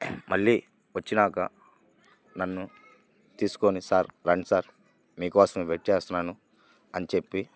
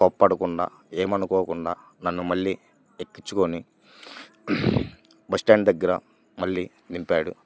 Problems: none marked